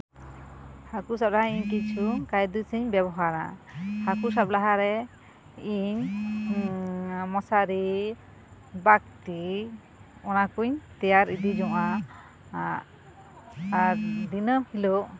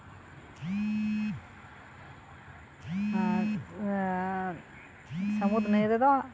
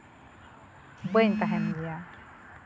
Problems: background sounds at intervals